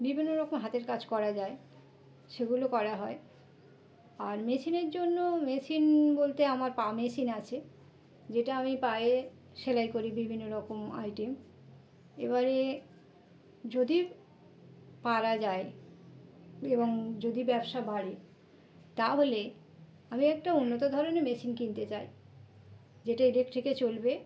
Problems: constant background noise